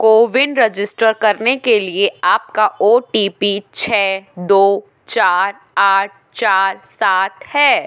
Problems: constant background noise, background conversations at intervals